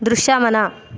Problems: constant background noise